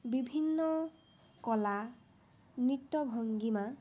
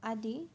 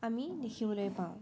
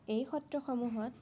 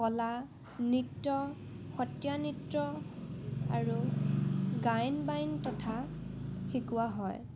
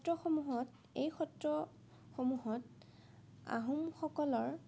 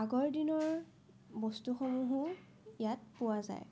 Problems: none marked